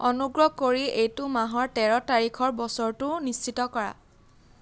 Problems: none marked